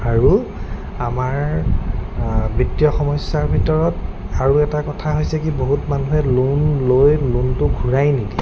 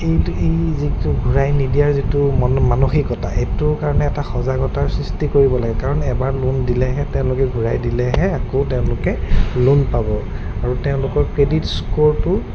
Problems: constant background noise